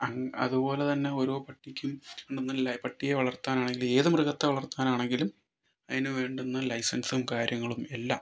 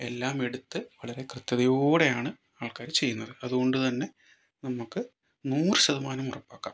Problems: none marked